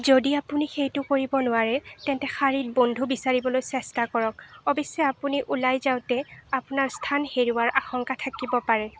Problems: constant background noise